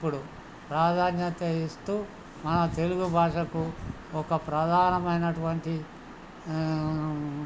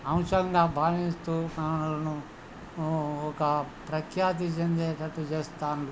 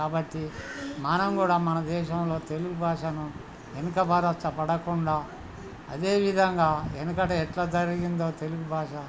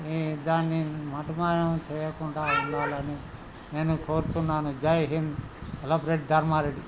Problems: background conversations at intervals